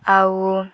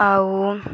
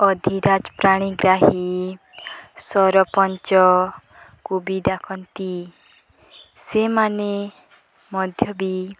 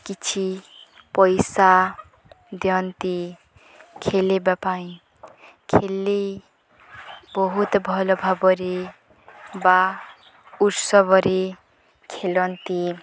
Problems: none marked